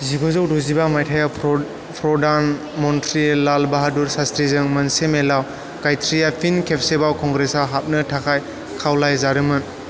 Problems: constant background noise